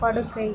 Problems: constant background noise